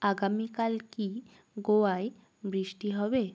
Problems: none marked